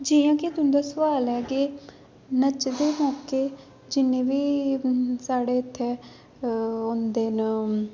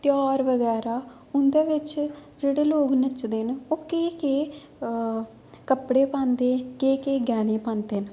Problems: none marked